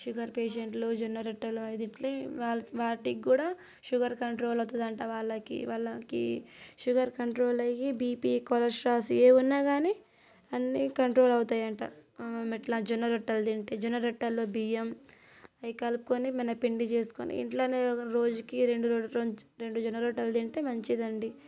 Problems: none marked